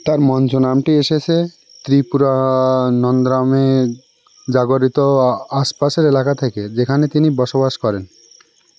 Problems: constant background noise